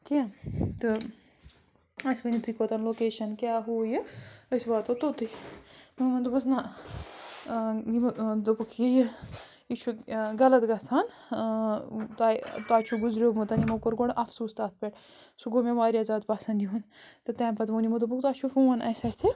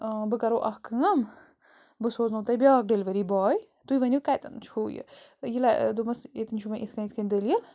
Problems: constant background noise